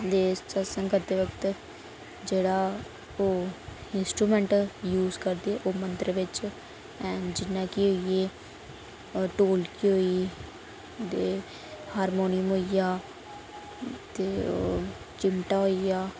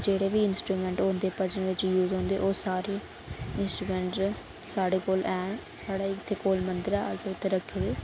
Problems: constant background noise